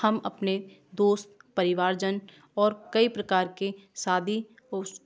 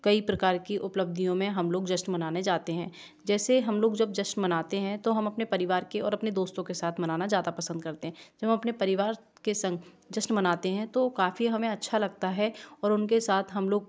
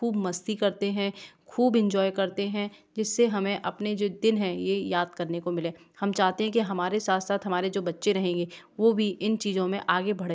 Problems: background sounds at intervals